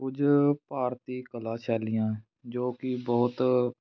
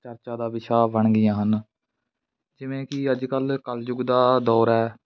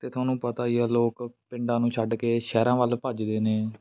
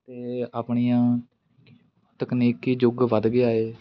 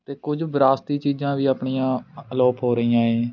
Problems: none marked